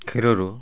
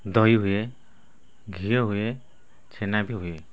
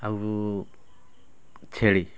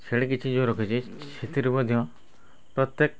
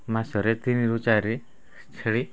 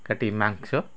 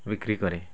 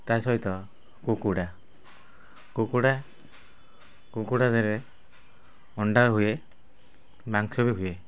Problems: background conversations at intervals